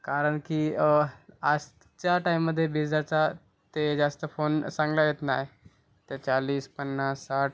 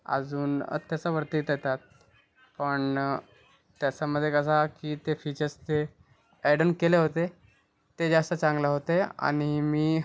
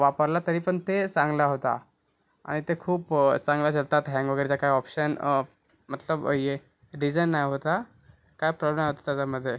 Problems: background sounds at intervals